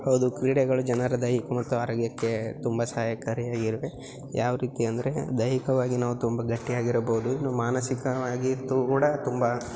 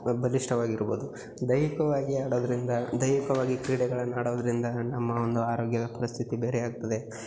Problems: none marked